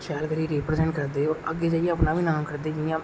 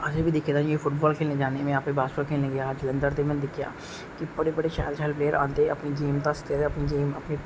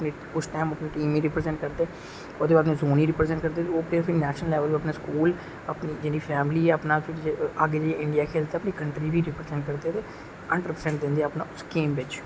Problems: none marked